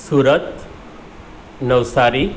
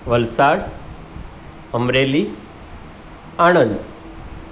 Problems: none marked